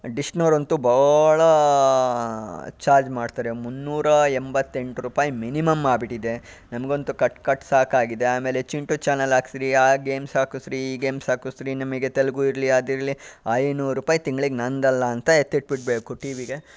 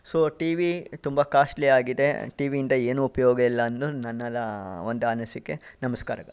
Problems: background sounds at intervals